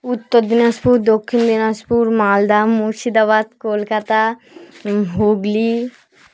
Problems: none marked